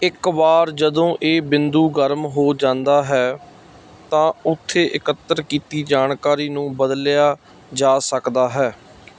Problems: none marked